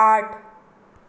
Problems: none marked